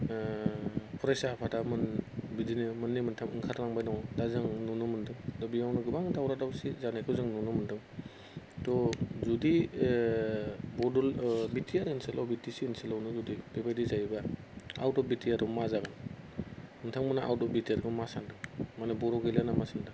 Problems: none marked